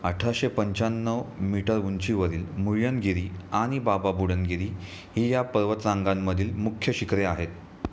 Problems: constant background noise, background conversations at intervals